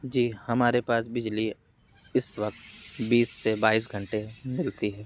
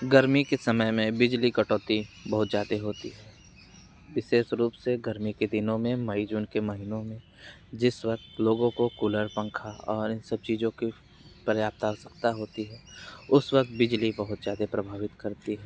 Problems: constant background noise